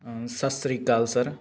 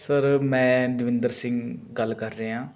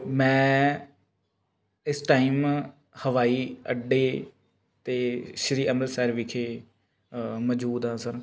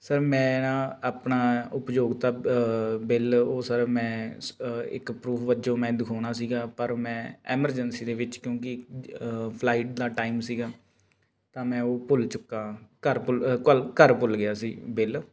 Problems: constant background noise